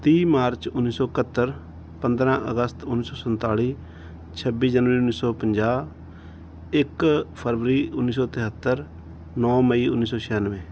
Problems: background sounds at intervals